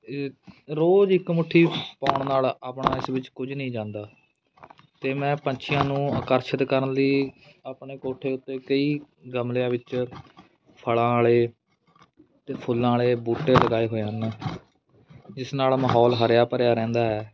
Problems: constant background noise